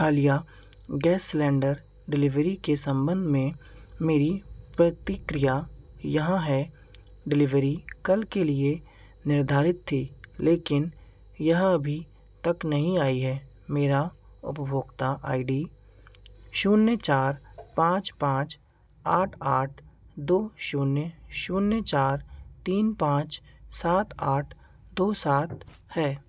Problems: constant background noise